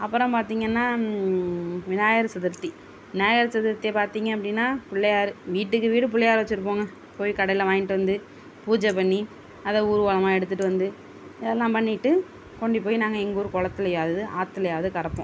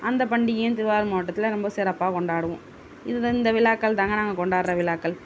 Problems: constant background noise